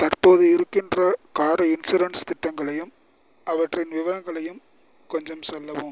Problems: none marked